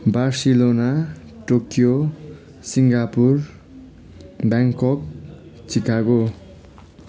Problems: none marked